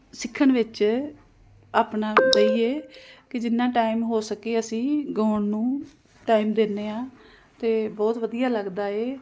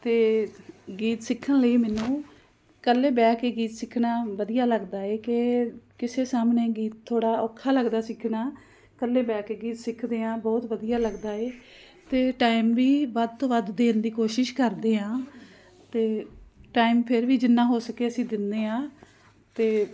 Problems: constant background noise